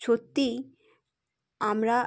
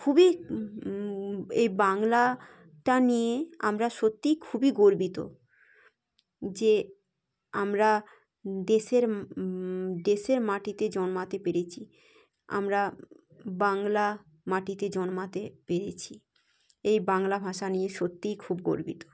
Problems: none marked